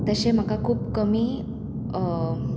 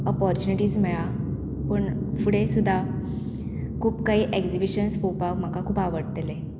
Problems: constant background noise